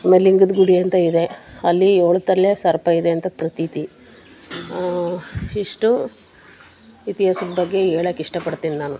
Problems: none marked